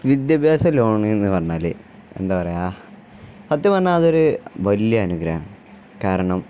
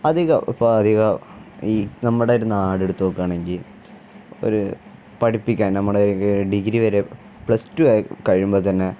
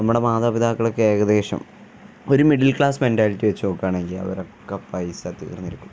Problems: none marked